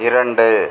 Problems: constant background noise